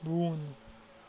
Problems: constant background noise